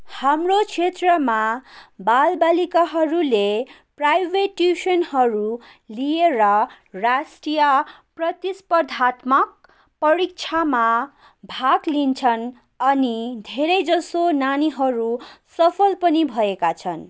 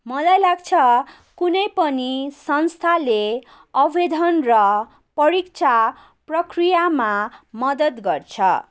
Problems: none marked